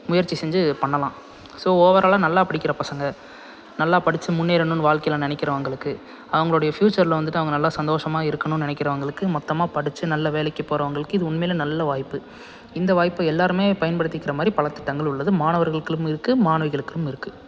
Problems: background sounds at intervals